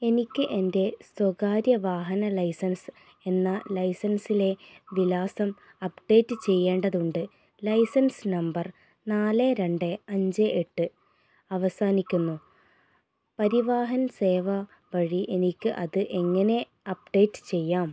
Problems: none marked